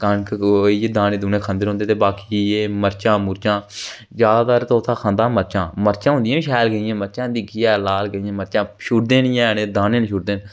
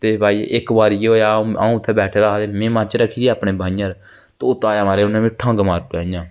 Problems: constant background noise